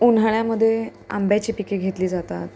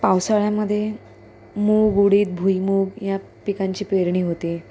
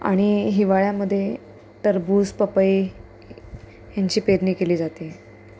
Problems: constant background noise